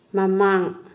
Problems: none marked